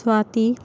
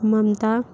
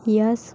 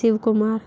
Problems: constant background noise